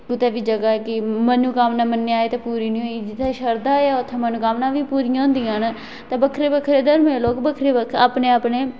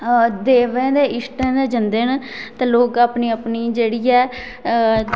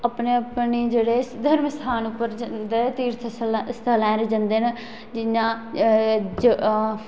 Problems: constant background noise, echo